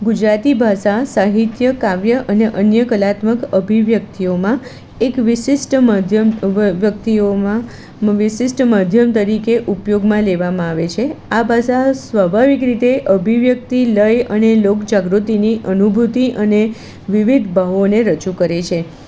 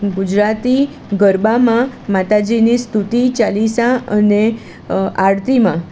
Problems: constant background noise